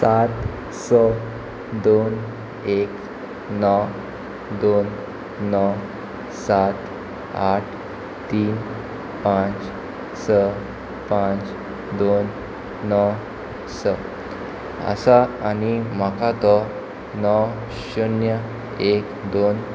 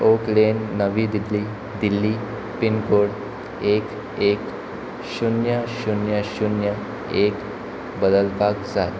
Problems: background conversations at intervals